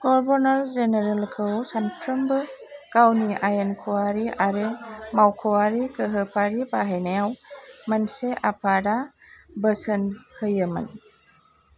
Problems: none marked